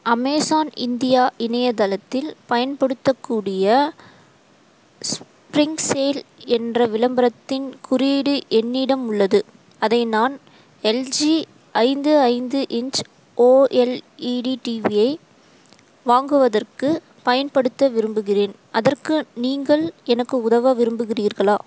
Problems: constant background noise